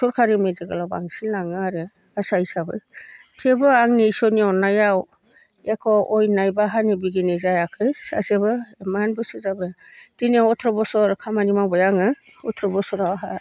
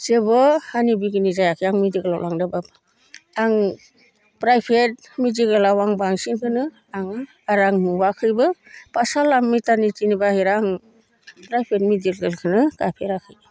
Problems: none marked